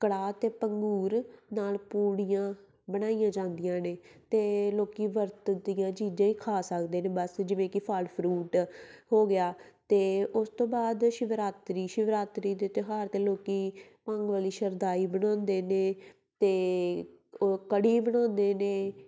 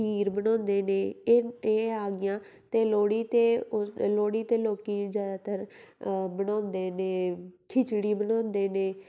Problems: none marked